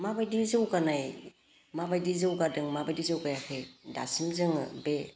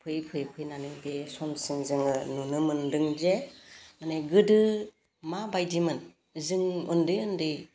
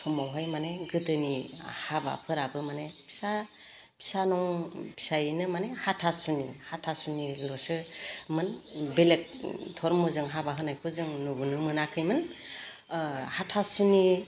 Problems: low volume